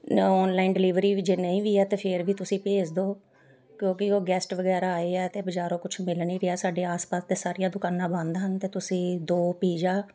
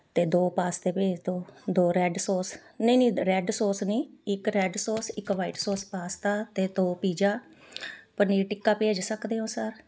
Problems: background sounds at intervals, continuous background conversations